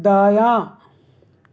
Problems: background sounds at intervals